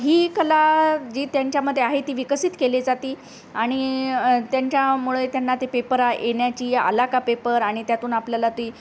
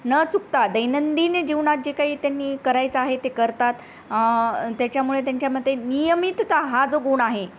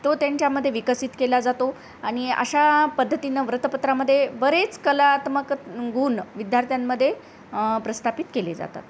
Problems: constant background noise